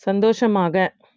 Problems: none marked